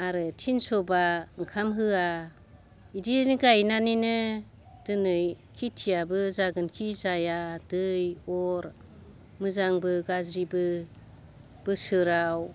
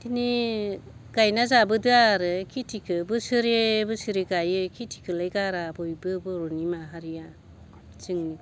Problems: constant background noise